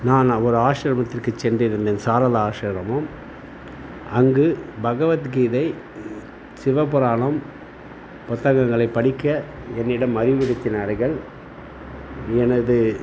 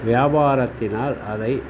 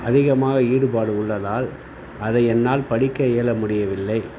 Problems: none marked